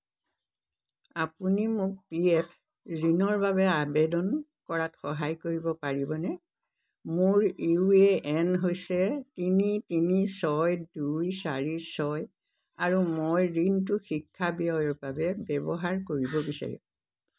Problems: background sounds at intervals